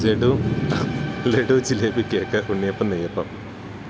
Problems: constant background noise